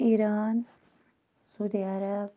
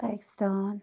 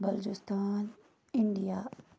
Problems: none marked